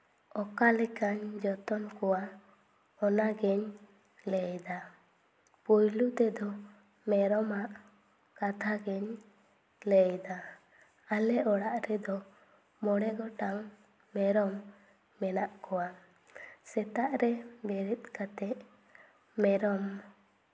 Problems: none marked